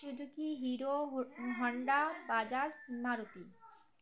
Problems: background sounds at intervals, continuous background conversations